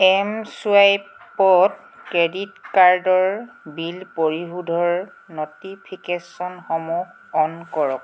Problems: background sounds at intervals